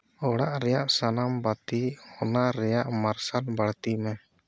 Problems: none marked